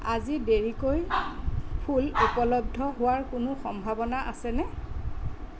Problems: background sounds at intervals